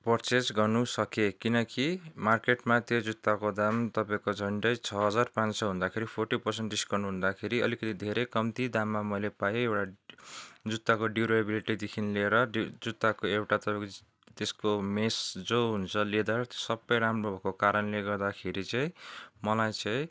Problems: background sounds at intervals